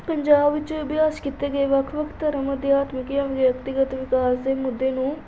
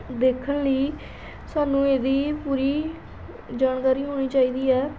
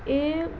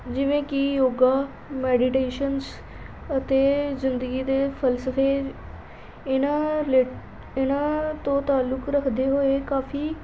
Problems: background sounds at intervals